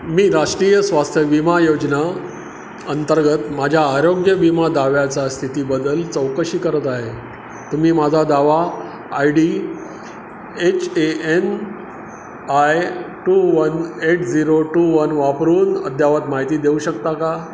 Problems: constant background noise